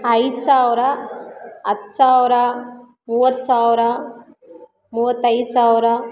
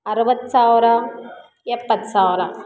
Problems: continuous background conversations